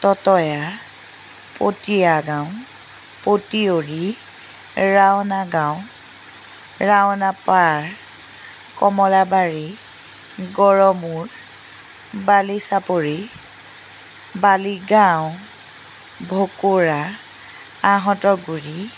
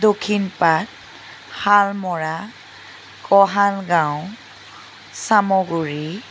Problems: constant background noise